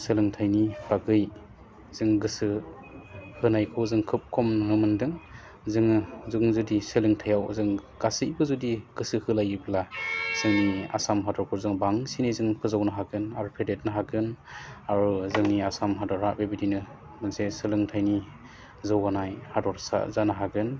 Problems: low volume